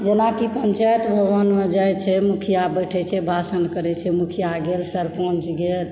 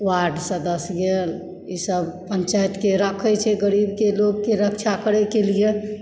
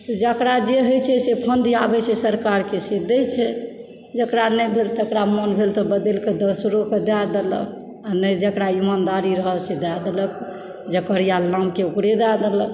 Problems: background sounds at intervals